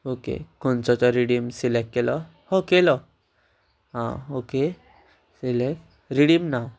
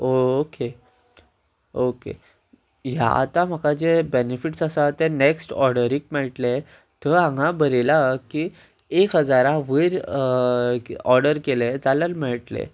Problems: constant background noise